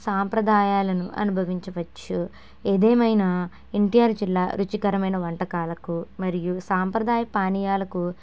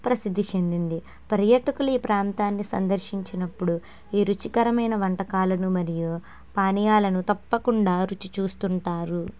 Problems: none marked